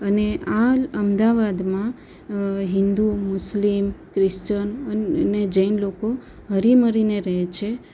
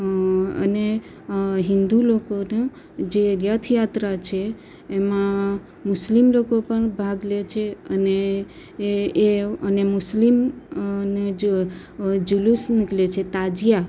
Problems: constant background noise